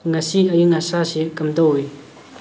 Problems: constant background noise